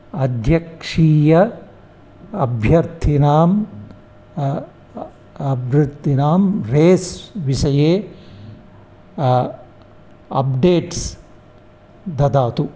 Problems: none marked